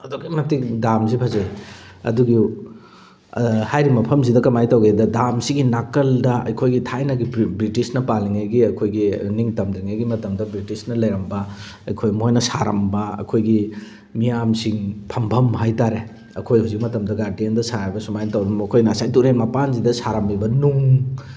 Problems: background sounds at intervals